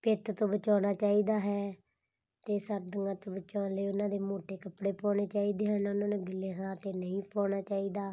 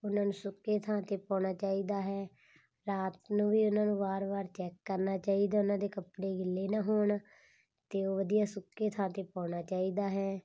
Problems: none marked